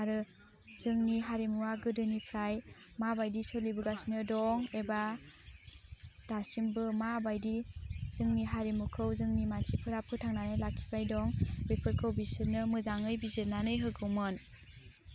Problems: constant background noise